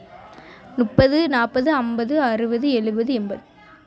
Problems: background conversations at intervals